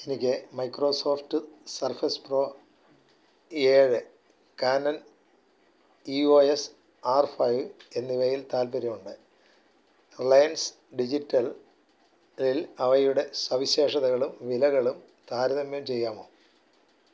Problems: constant background noise, low volume